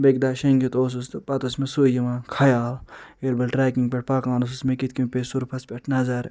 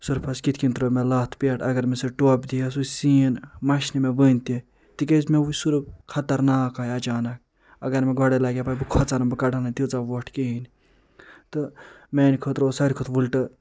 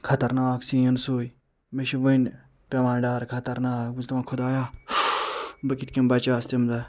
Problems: constant background noise